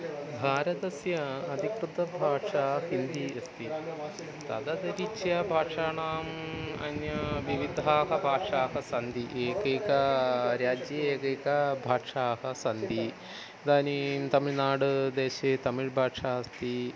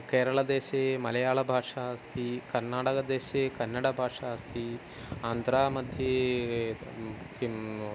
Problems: none marked